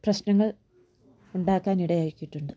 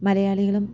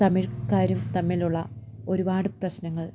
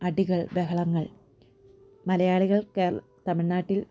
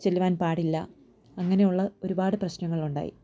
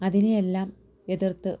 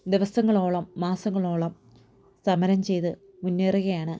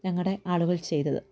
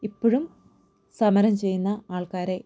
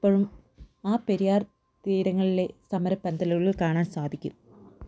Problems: low volume